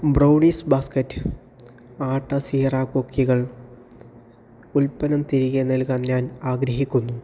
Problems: background sounds at intervals